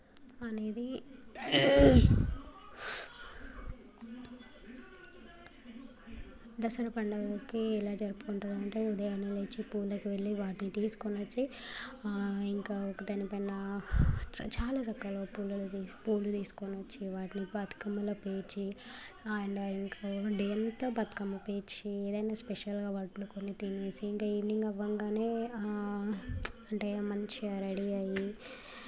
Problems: background sounds at intervals